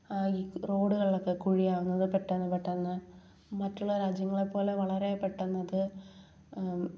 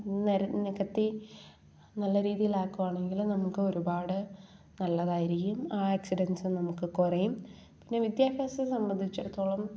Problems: none marked